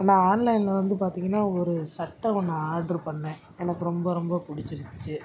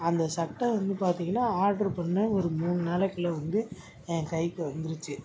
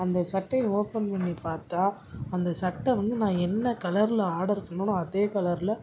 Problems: background sounds at intervals